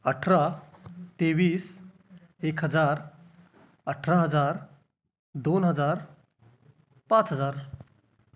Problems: background sounds at intervals